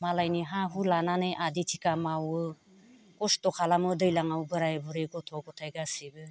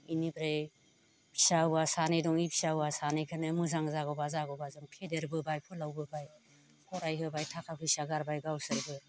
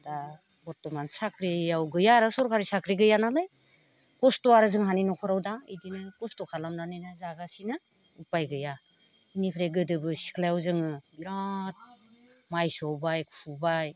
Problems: none marked